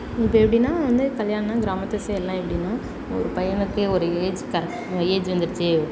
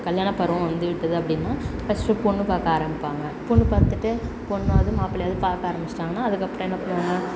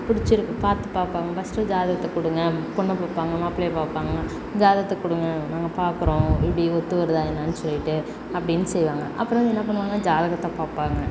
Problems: background conversations at intervals